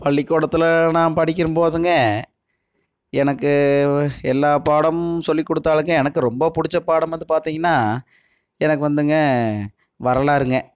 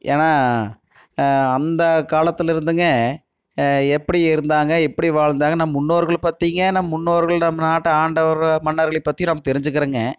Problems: none marked